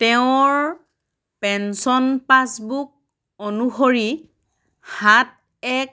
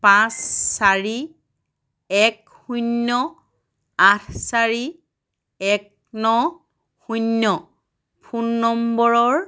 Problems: none marked